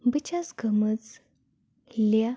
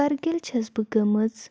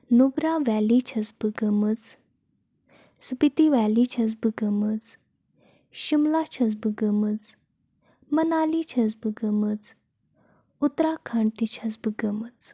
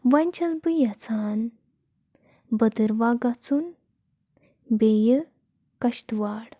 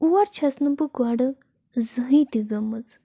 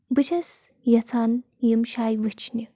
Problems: constant background noise